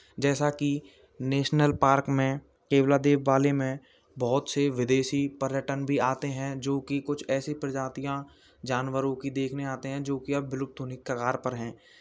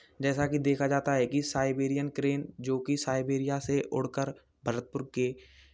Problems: none marked